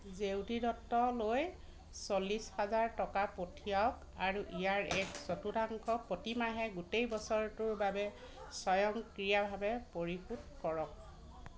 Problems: constant background noise